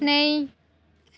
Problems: none marked